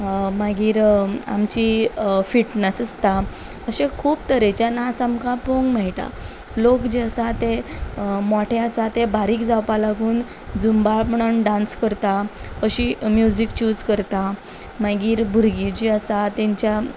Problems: background sounds at intervals